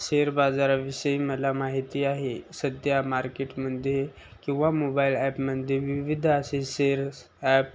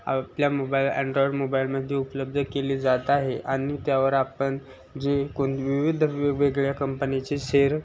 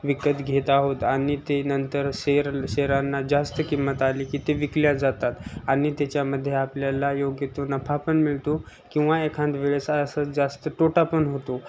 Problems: constant background noise